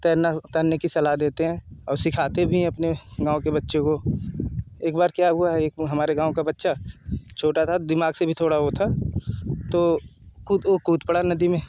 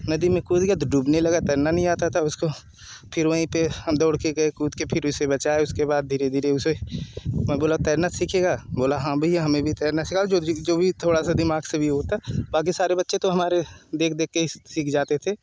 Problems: none marked